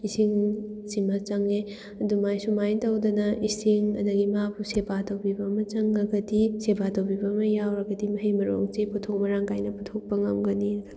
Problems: none marked